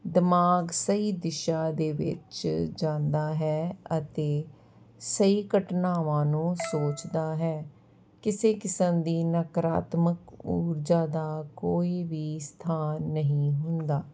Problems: none marked